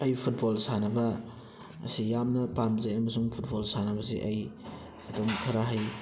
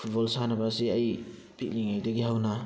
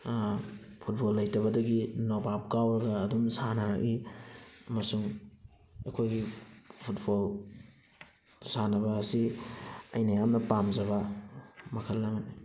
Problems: constant background noise